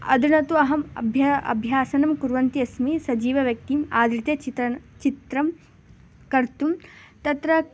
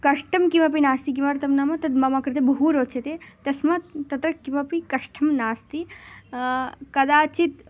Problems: constant background noise